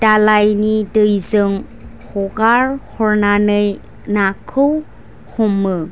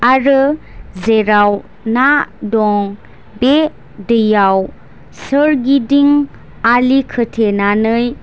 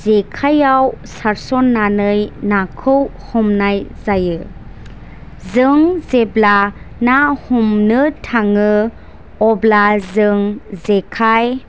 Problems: none marked